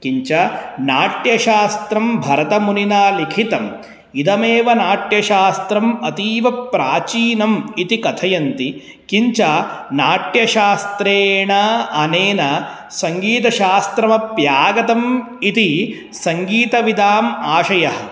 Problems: none marked